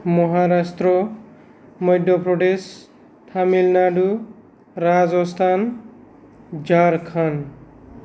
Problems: none marked